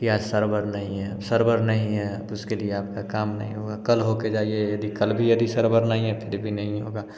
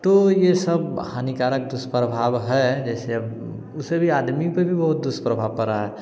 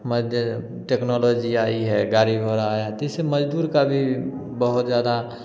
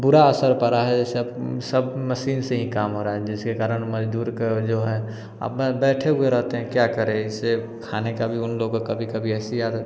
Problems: background sounds at intervals